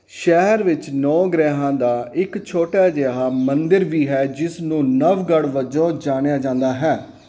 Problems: background sounds at intervals